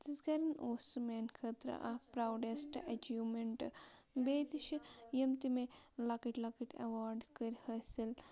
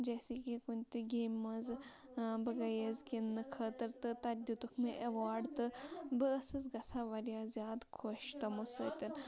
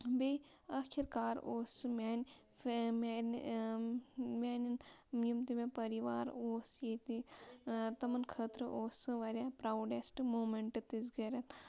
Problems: constant background noise, low volume